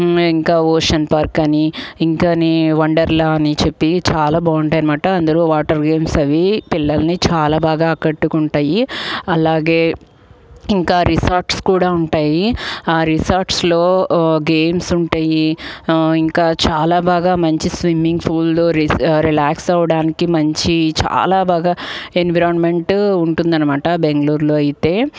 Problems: background sounds at intervals